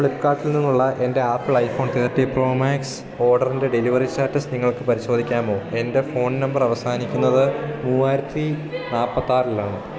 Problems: constant background noise